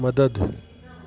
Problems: constant background noise